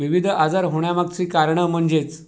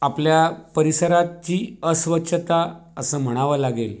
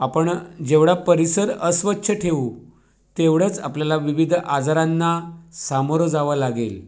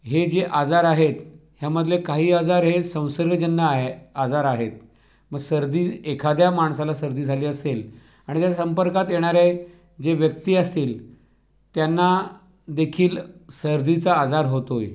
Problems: none marked